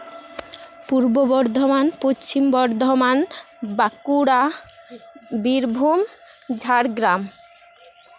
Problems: constant background noise